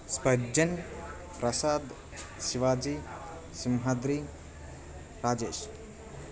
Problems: constant background noise, background conversations at intervals